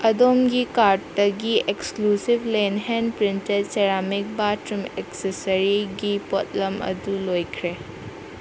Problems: constant background noise